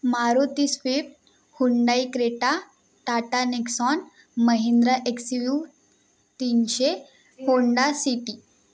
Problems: constant background noise